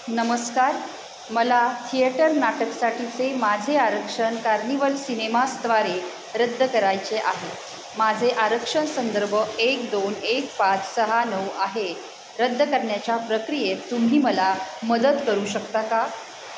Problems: constant background noise